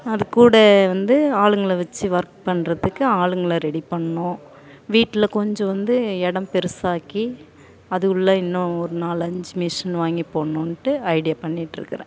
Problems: constant background noise, continuous background conversations